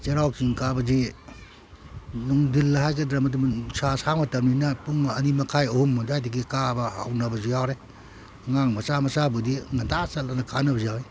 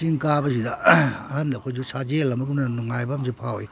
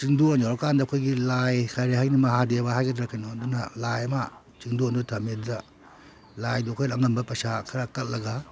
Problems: none marked